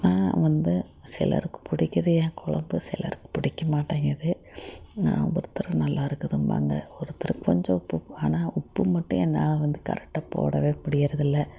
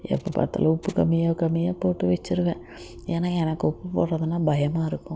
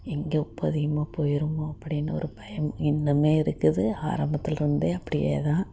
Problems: constant background noise, low volume